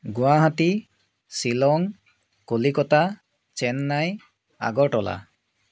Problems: constant background noise